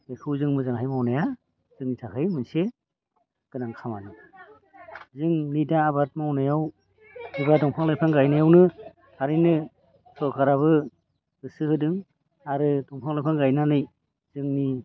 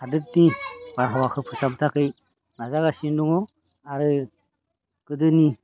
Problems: low volume